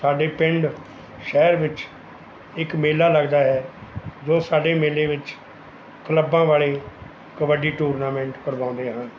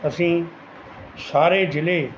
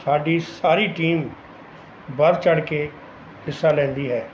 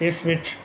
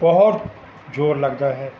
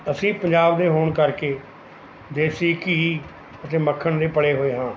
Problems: background sounds at intervals